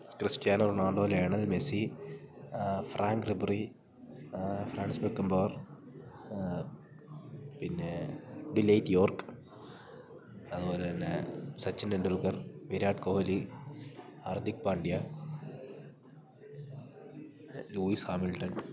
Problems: low volume